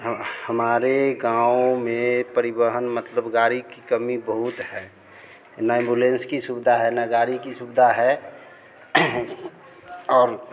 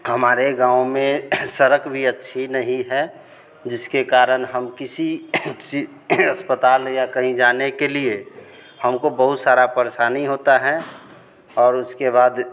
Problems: none marked